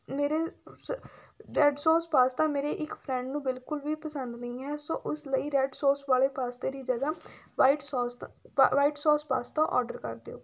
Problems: background sounds at intervals